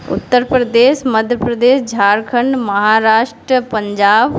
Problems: background sounds at intervals